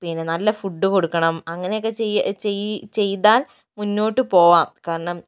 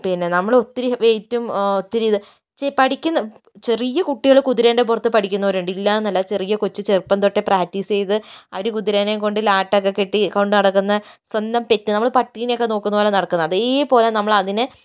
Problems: none marked